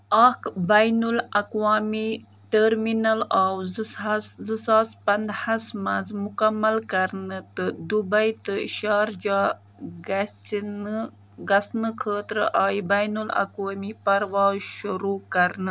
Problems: background sounds at intervals